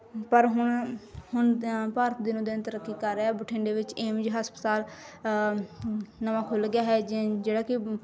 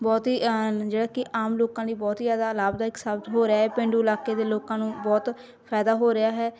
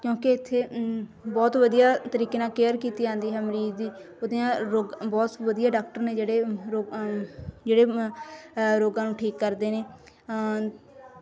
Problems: continuous background conversations